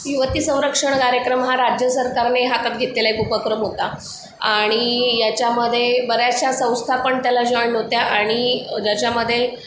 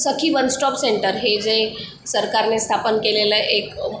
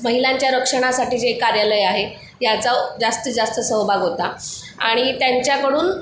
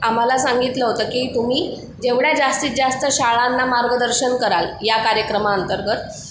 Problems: background sounds at intervals